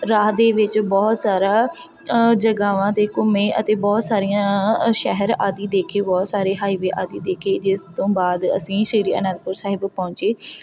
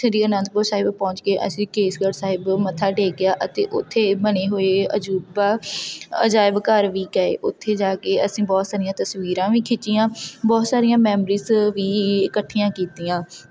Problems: constant background noise